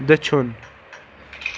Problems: none marked